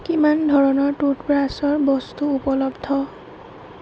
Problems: constant background noise, low volume